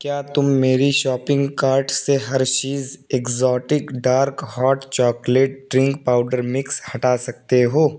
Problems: constant background noise